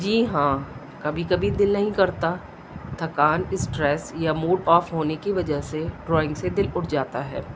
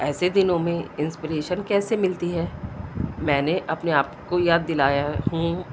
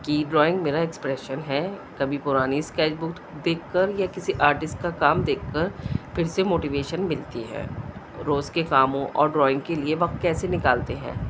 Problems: constant background noise, low volume